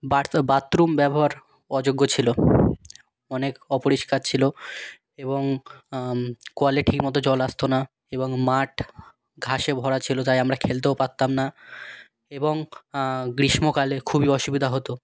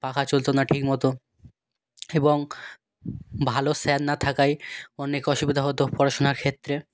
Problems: background sounds at intervals